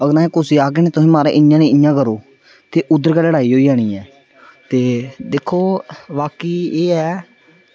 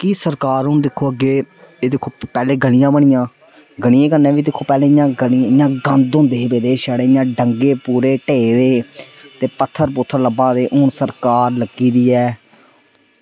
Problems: none marked